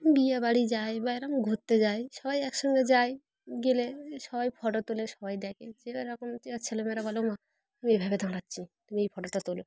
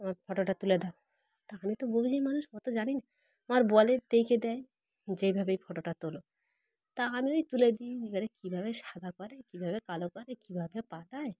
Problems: background sounds at intervals, background conversations at intervals